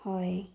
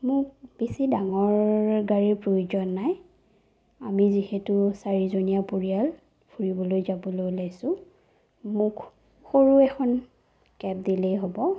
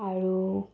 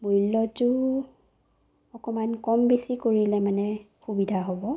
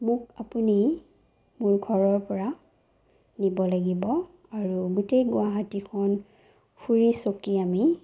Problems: low volume